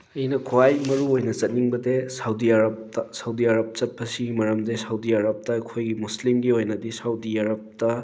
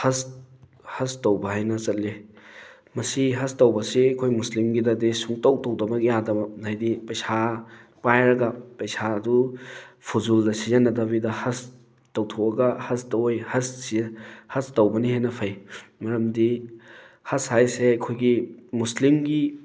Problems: background sounds at intervals